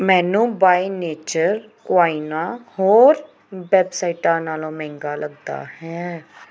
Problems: background sounds at intervals